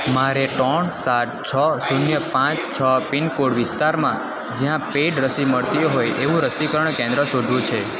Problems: constant background noise